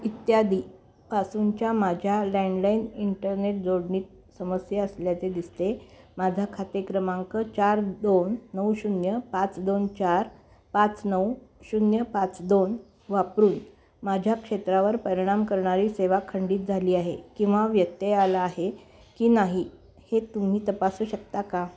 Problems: constant background noise